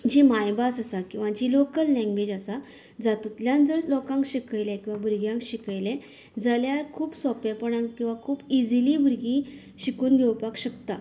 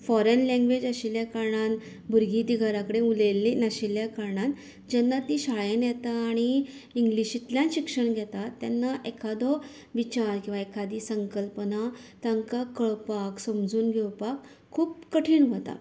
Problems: none marked